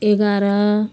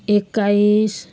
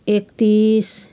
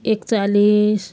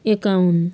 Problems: constant background noise